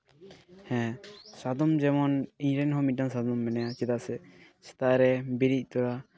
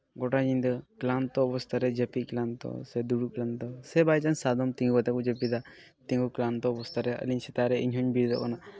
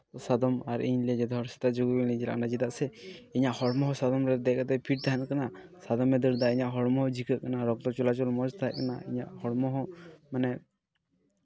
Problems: background sounds at intervals